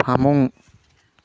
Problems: none marked